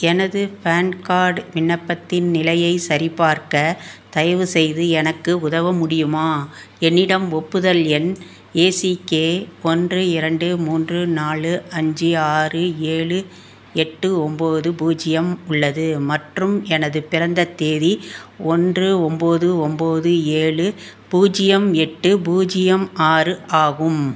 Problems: constant background noise